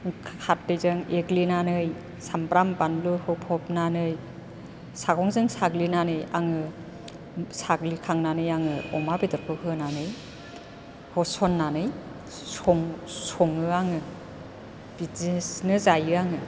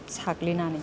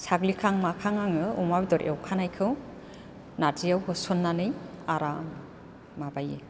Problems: constant background noise